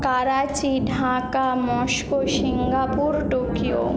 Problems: background conversations at intervals